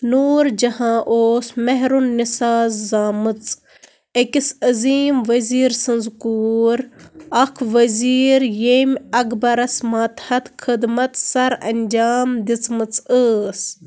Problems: background sounds at intervals